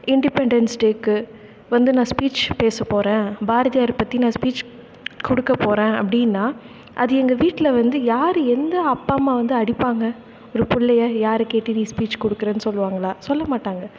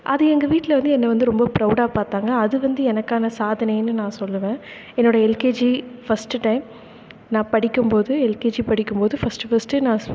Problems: none marked